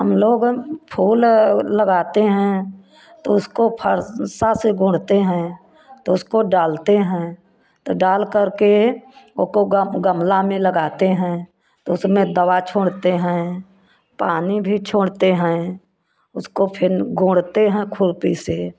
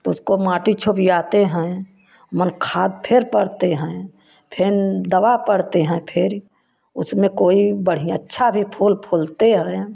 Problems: constant background noise